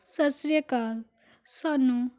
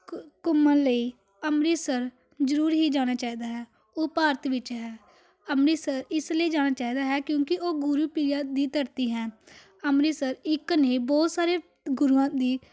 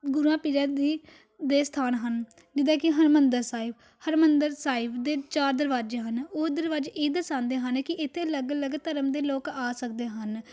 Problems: none marked